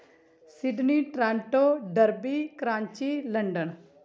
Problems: background sounds at intervals